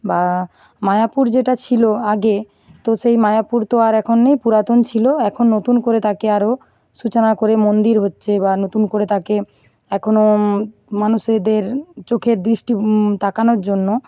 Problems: none marked